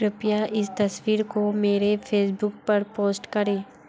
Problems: background sounds at intervals, background conversations at intervals